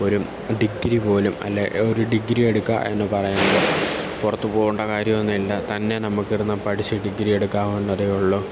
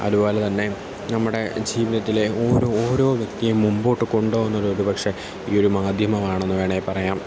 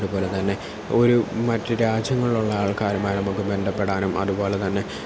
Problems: none marked